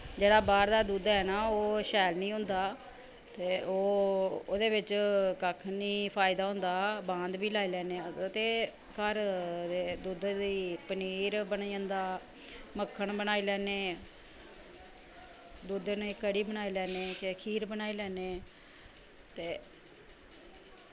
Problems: none marked